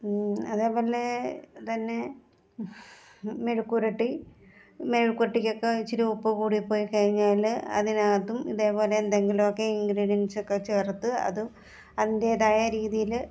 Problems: none marked